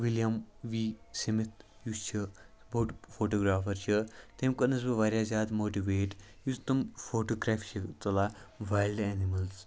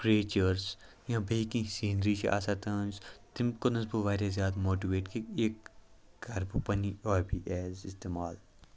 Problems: background sounds at intervals